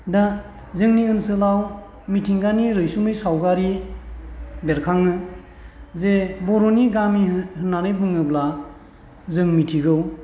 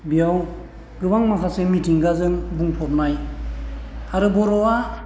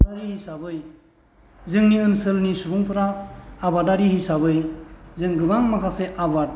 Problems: none marked